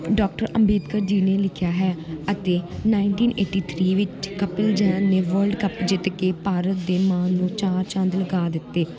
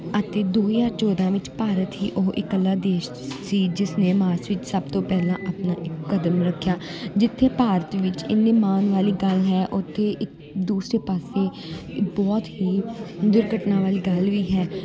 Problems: continuous background conversations